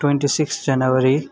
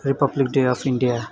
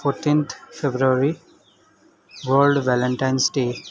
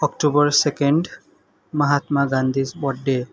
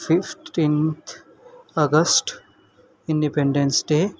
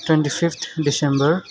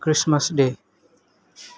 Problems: constant background noise